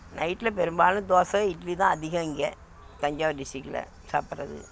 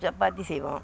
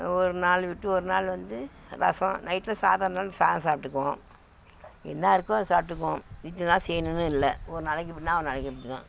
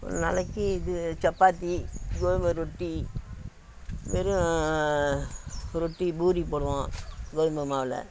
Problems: constant background noise